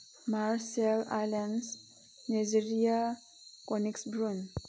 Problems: background sounds at intervals